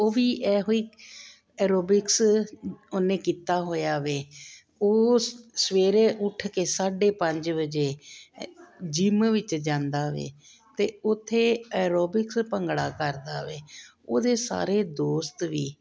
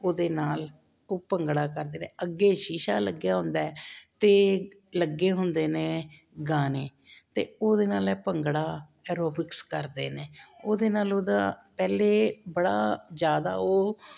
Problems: none marked